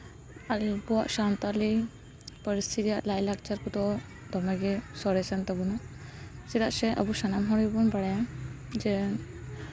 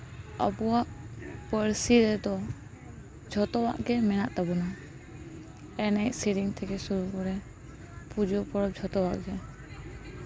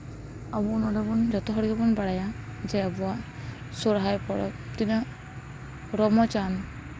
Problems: continuous background conversations